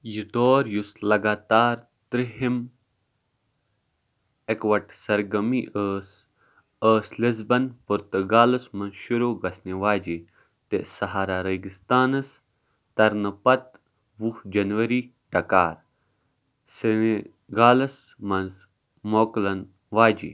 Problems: background sounds at intervals